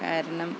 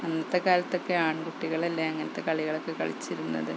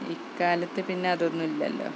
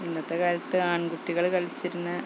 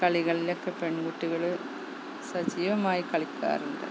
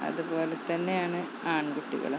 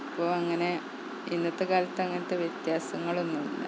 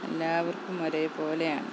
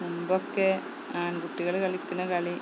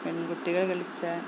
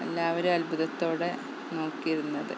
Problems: constant background noise, low volume